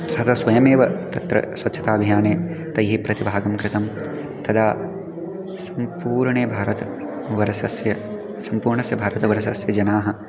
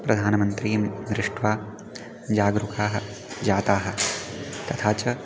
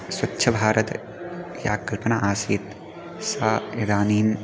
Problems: background sounds at intervals